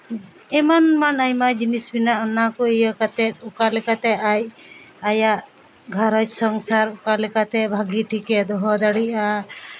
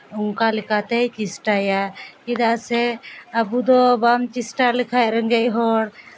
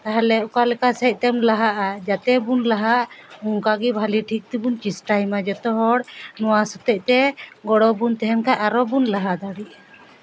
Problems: background sounds at intervals